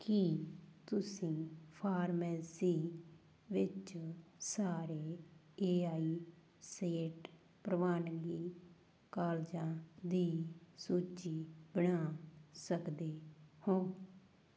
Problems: background sounds at intervals